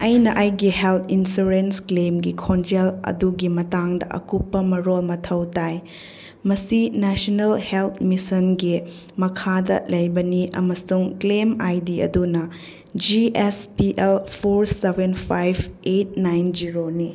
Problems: none marked